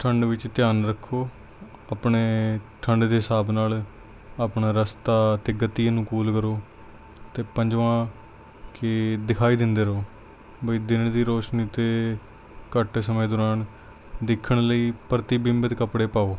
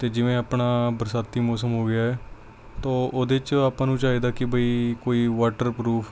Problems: none marked